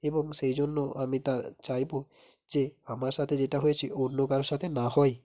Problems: none marked